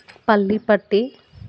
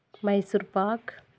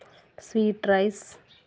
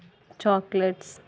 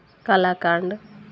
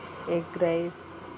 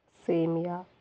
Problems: background sounds at intervals